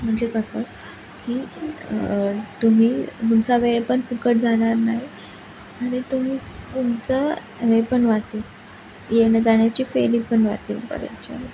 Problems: constant background noise, background conversations at intervals